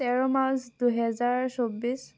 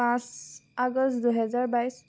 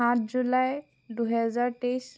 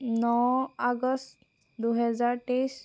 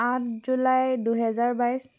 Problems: constant background noise